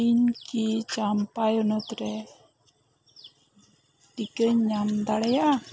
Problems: background sounds at intervals